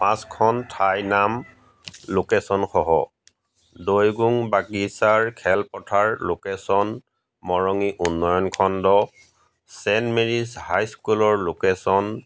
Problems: background sounds at intervals